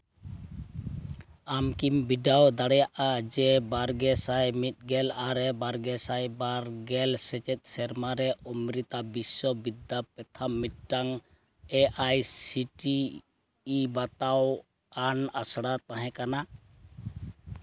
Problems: none marked